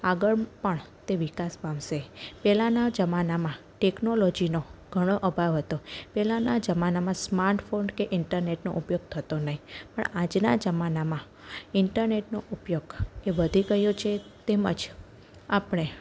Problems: none marked